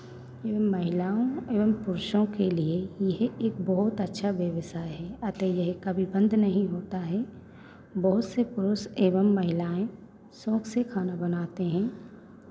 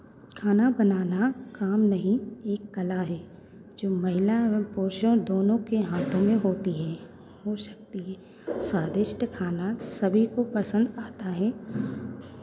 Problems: constant background noise, background conversations at intervals